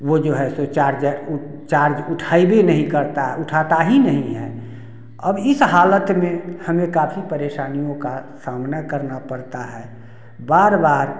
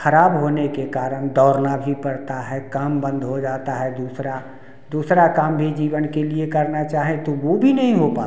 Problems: none marked